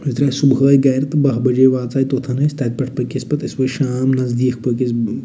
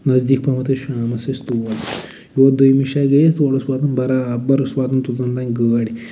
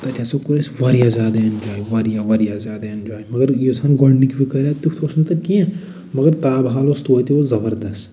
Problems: none marked